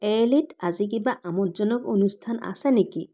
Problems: background conversations at intervals